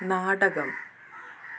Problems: constant background noise